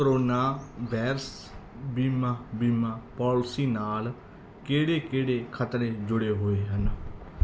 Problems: background sounds at intervals